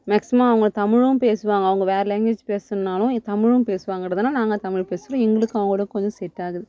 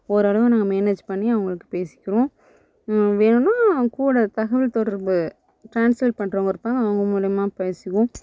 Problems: none marked